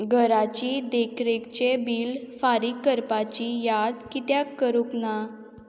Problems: none marked